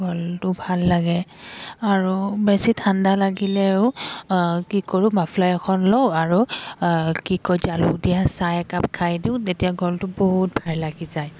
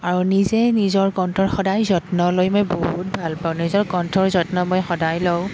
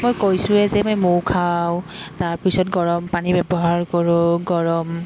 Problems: background sounds at intervals